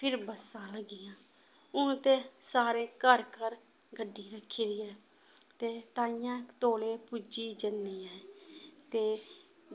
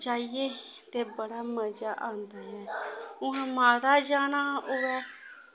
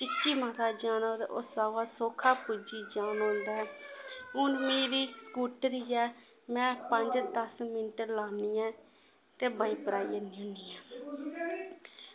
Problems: constant background noise